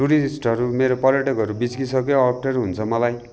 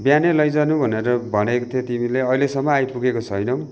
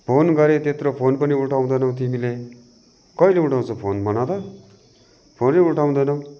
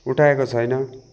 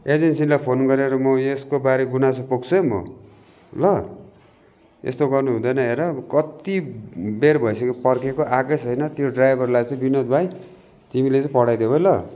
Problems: constant background noise